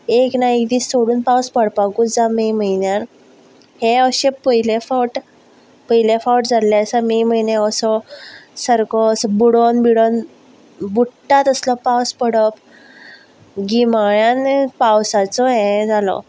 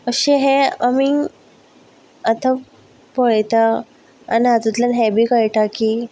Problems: background sounds at intervals